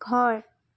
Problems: none marked